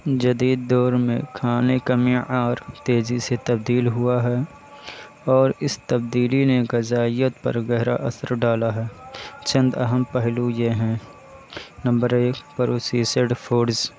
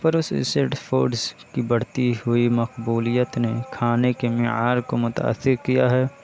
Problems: constant background noise